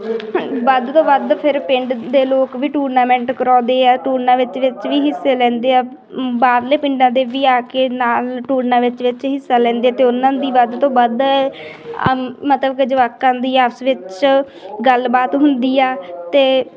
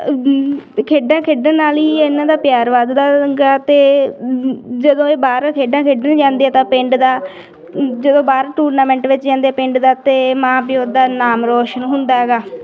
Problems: continuous background conversations